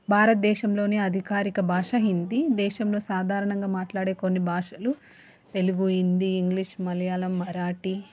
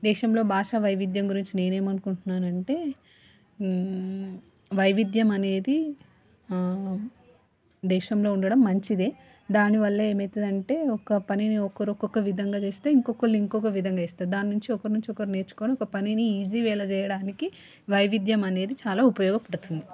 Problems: background conversations at intervals